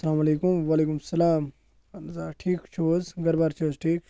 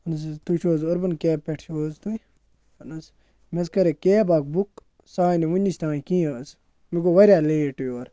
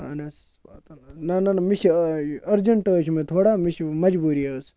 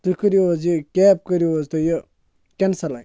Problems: constant background noise